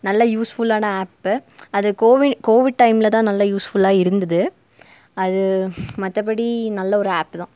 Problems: none marked